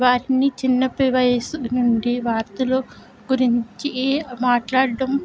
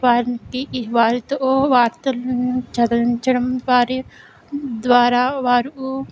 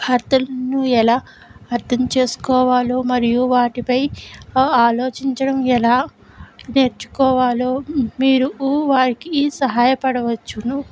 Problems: none marked